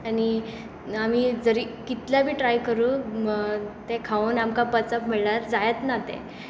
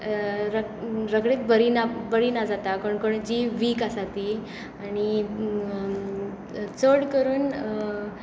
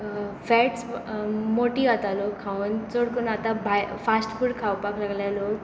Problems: constant background noise